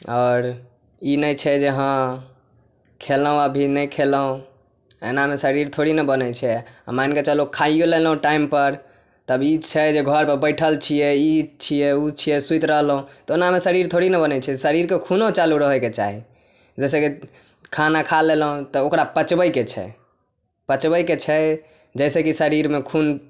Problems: none marked